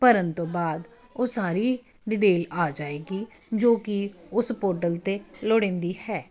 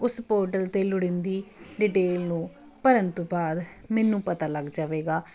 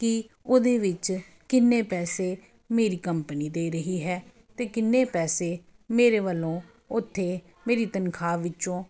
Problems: none marked